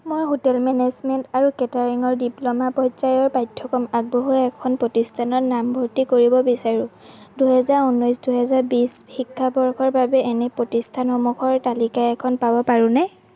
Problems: none marked